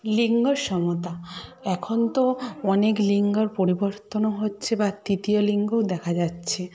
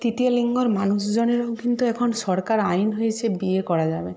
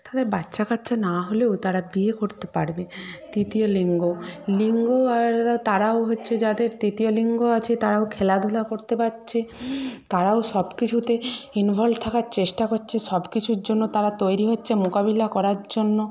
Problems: background conversations at intervals